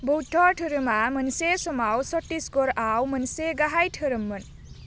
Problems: constant background noise